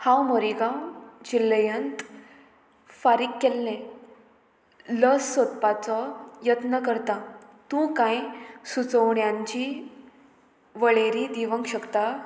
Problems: constant background noise